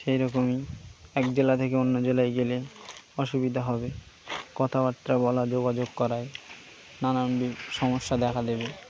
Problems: constant background noise